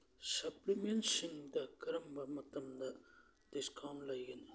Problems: low volume